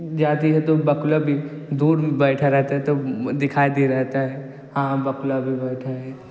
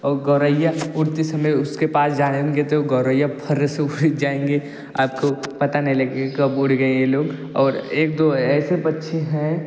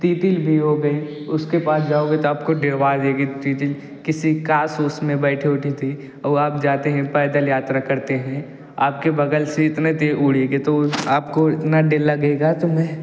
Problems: none marked